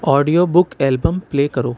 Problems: constant background noise